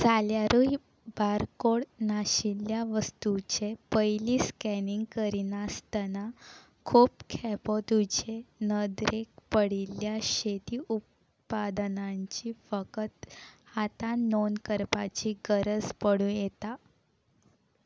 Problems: background sounds at intervals